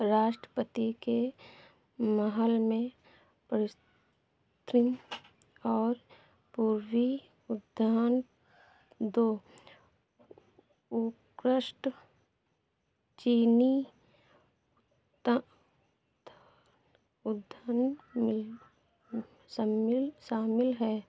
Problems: background sounds at intervals